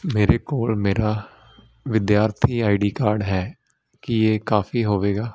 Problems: constant background noise